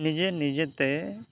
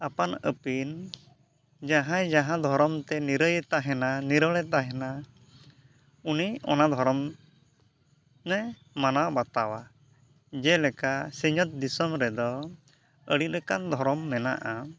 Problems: background sounds at intervals